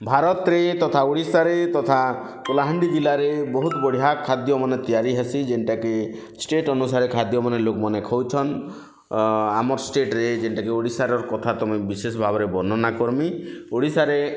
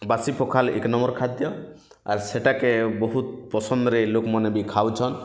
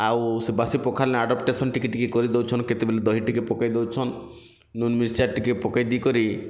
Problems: constant background noise